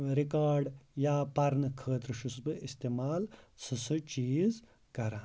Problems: background sounds at intervals